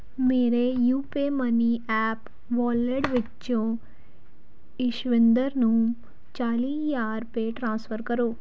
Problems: background sounds at intervals